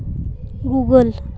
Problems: background sounds at intervals